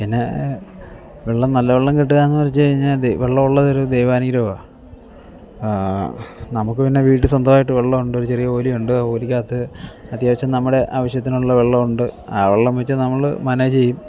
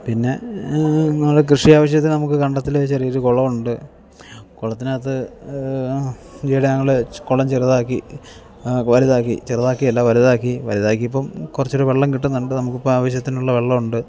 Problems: background sounds at intervals